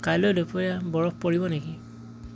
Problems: constant background noise